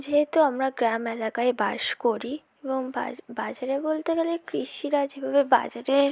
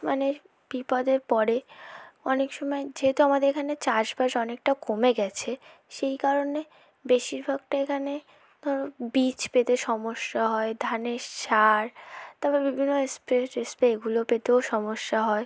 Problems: none marked